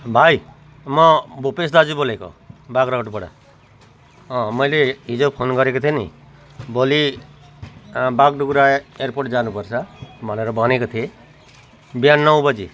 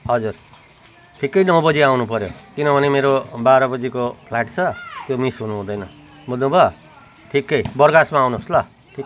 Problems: none marked